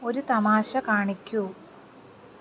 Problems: none marked